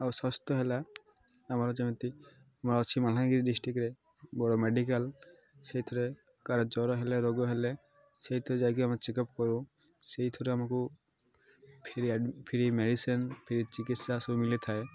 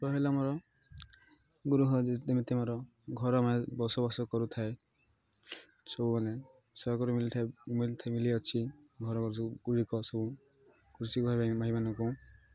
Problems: constant background noise, continuous background conversations